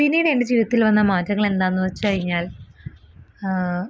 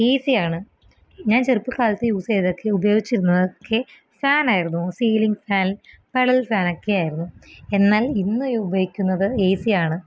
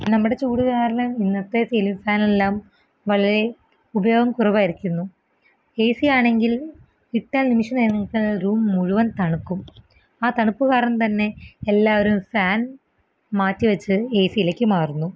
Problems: background sounds at intervals